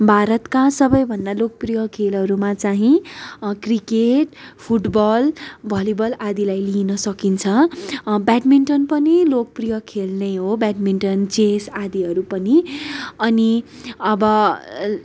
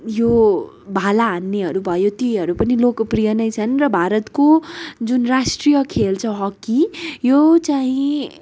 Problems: none marked